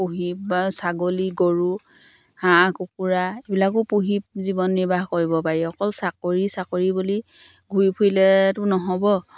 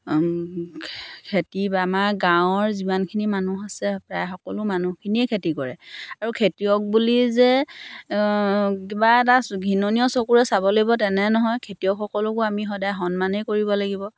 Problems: none marked